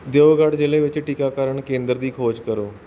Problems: background sounds at intervals